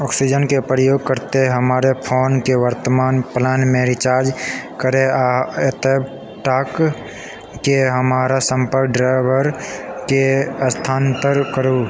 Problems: background sounds at intervals